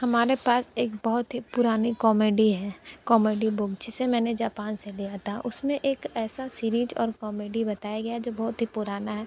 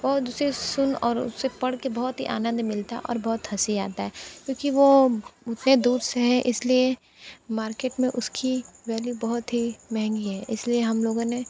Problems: constant background noise